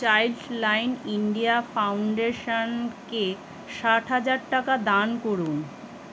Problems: none marked